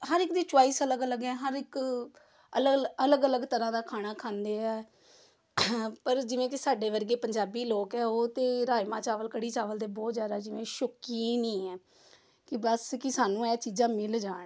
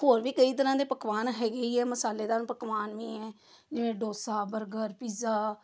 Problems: background sounds at intervals